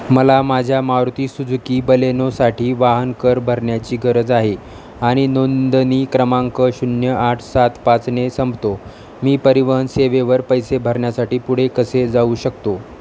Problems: none marked